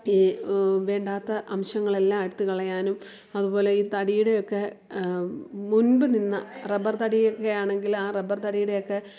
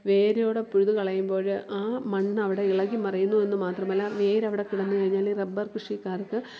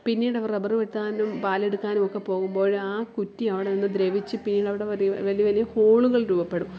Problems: background sounds at intervals